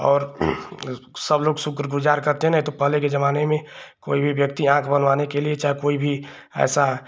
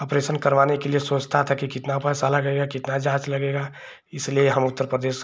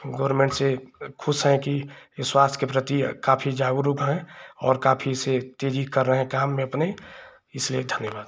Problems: none marked